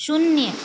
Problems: none marked